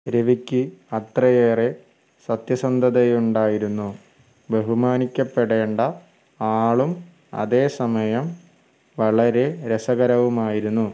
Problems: background sounds at intervals